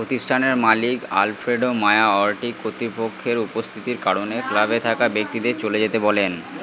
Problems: constant background noise, background conversations at intervals